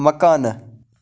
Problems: constant background noise